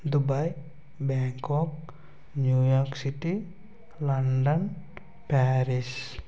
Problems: constant background noise, low volume